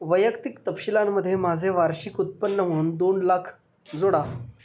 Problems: none marked